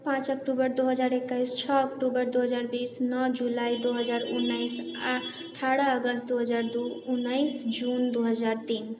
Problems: none marked